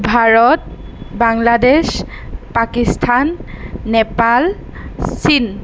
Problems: none marked